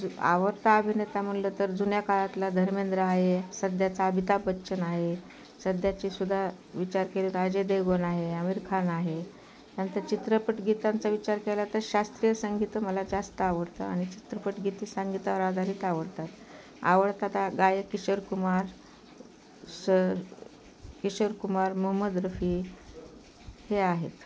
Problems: constant background noise